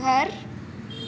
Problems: constant background noise